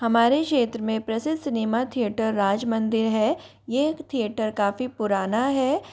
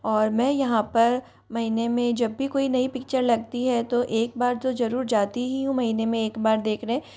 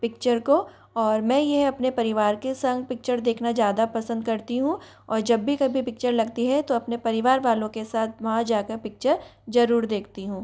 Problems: constant background noise, background conversations at intervals